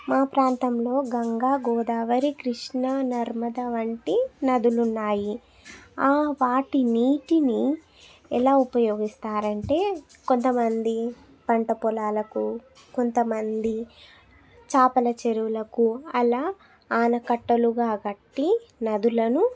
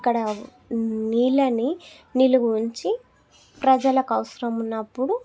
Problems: none marked